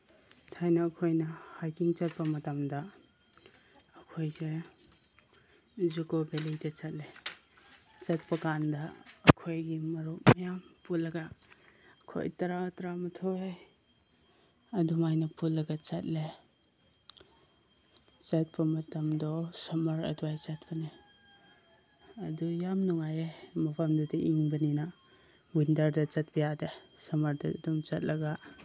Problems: constant background noise